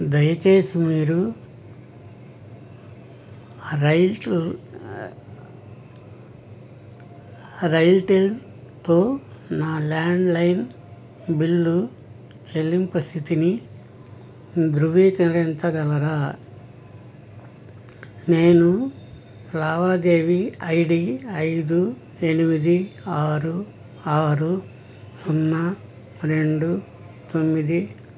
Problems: none marked